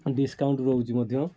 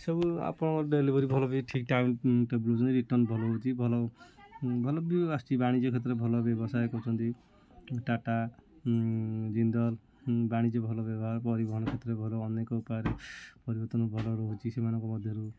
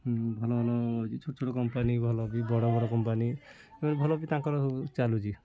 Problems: constant background noise, continuous background conversations